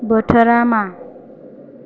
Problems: none marked